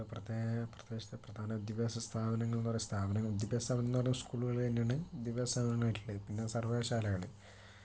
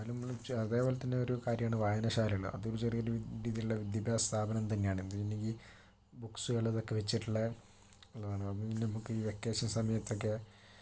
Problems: low volume